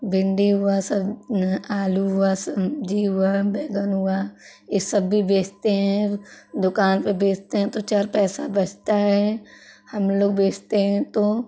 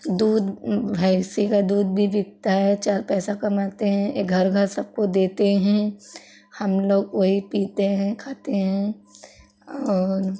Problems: constant background noise, background conversations at intervals